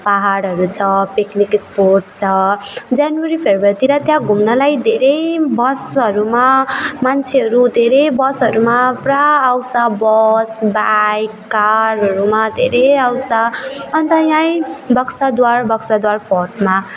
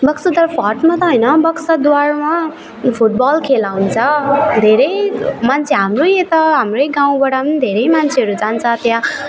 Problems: none marked